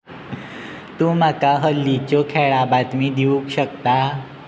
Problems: none marked